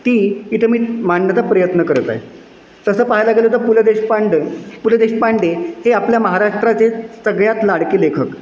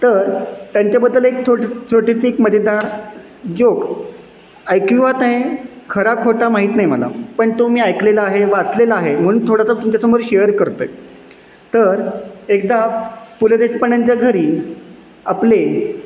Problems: constant background noise, echo